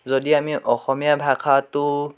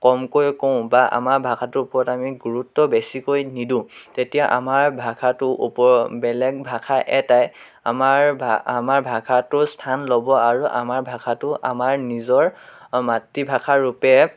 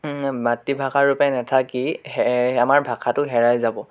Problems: none marked